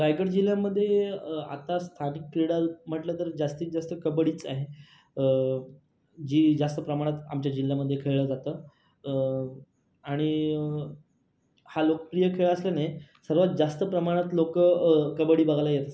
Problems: background sounds at intervals, background conversations at intervals